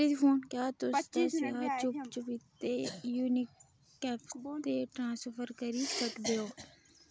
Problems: background sounds at intervals